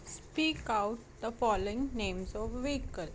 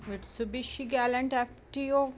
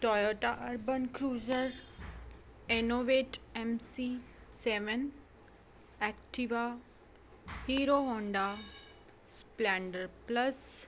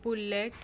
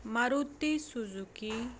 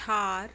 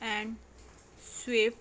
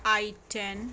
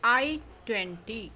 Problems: background sounds at intervals